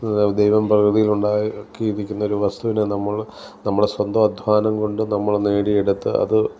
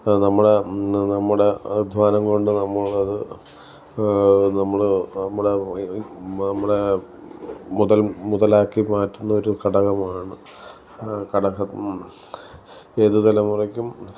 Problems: none marked